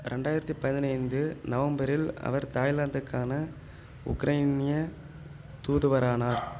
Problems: background sounds at intervals